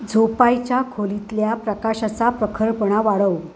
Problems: none marked